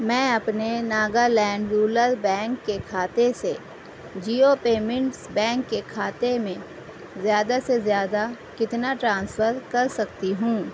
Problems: constant background noise